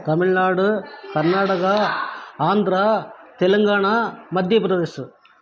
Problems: background sounds at intervals